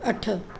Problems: constant background noise